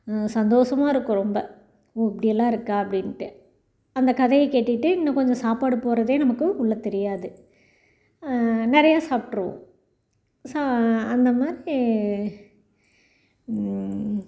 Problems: none marked